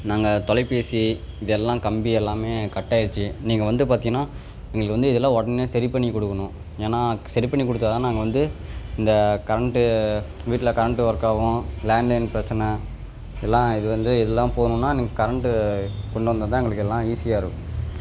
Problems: background sounds at intervals